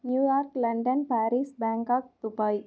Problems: none marked